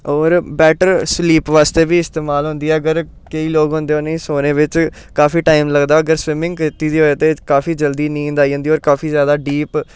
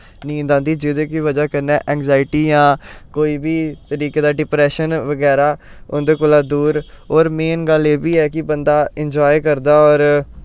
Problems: none marked